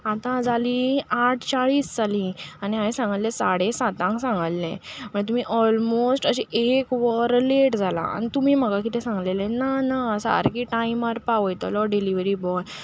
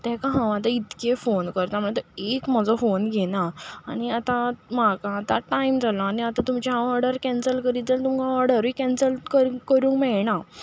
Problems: constant background noise